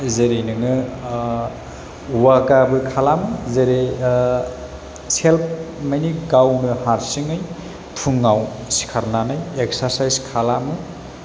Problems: none marked